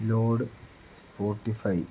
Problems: none marked